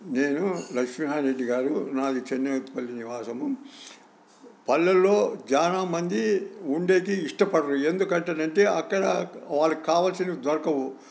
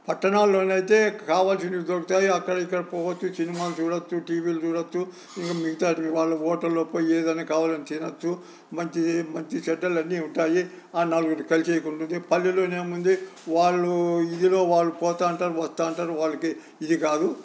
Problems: none marked